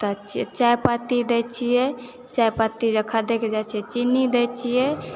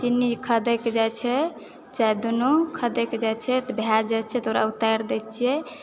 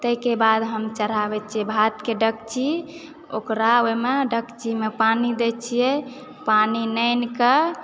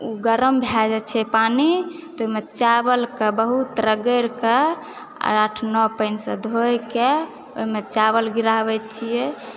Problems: none marked